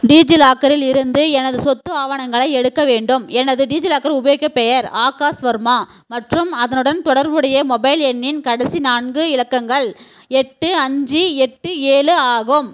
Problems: constant background noise